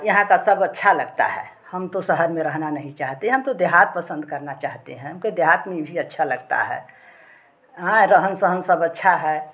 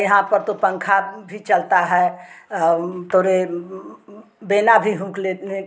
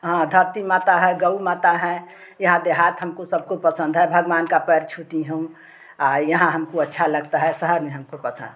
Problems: constant background noise, background conversations at intervals